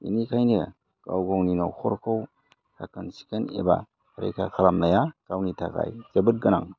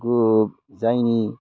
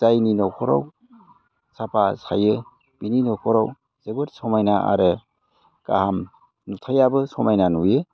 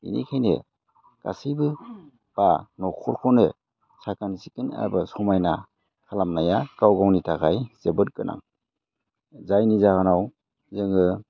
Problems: low volume